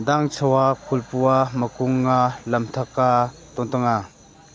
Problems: constant background noise